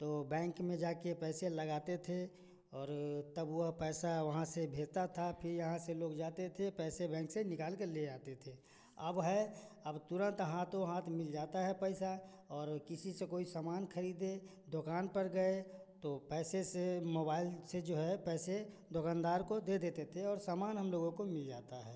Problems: constant background noise